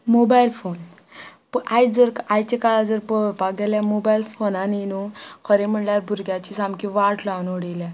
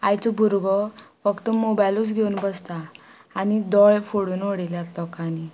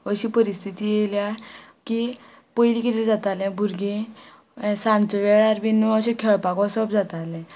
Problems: background sounds at intervals